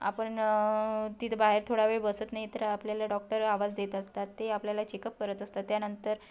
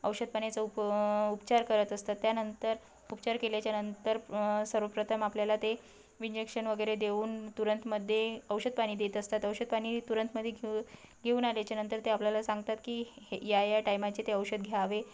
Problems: background sounds at intervals